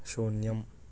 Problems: low volume